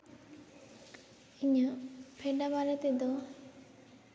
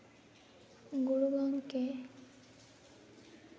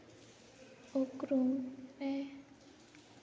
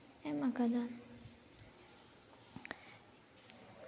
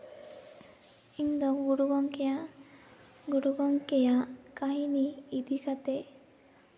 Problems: constant background noise, echo